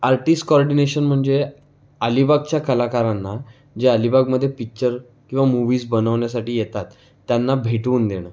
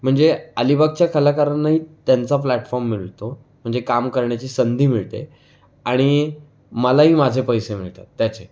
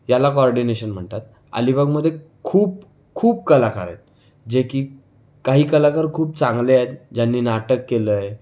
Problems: constant background noise, background conversations at intervals